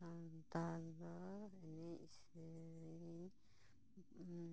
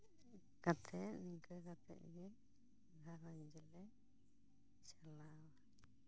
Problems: background sounds at intervals